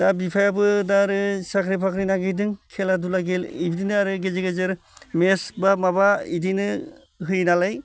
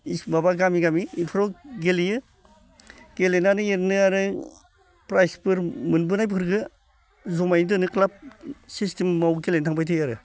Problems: constant background noise